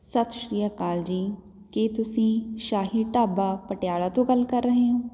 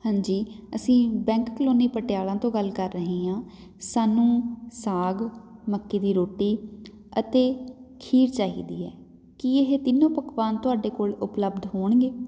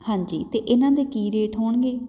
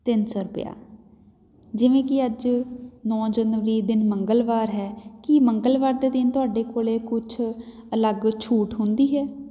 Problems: none marked